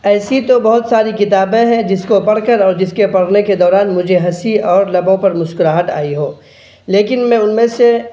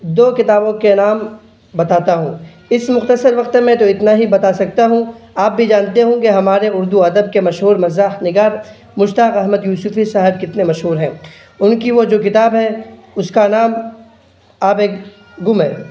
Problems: none marked